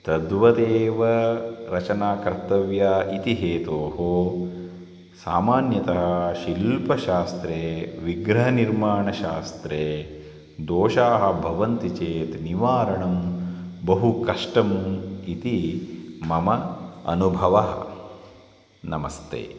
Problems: constant background noise